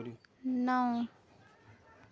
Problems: low volume